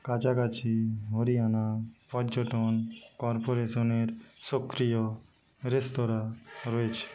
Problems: constant background noise, low volume